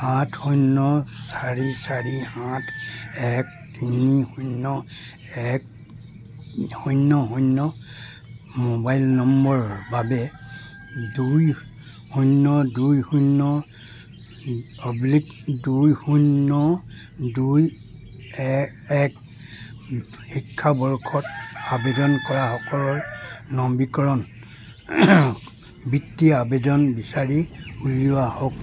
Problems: constant background noise